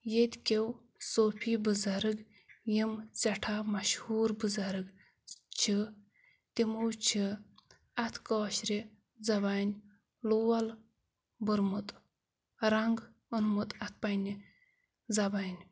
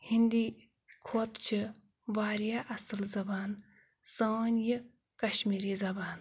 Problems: background sounds at intervals